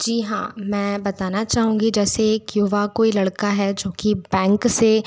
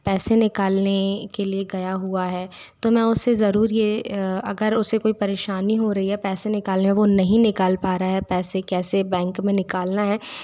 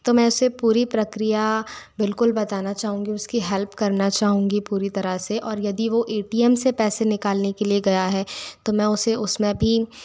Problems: none marked